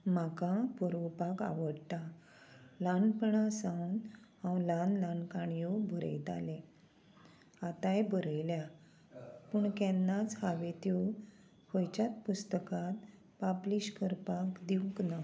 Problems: constant background noise